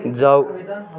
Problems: continuous background conversations